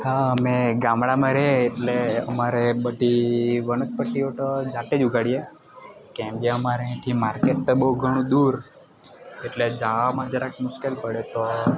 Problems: constant background noise